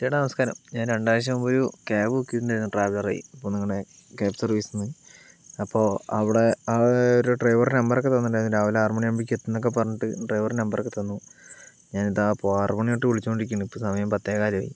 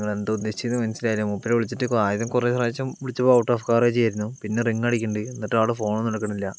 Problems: background sounds at intervals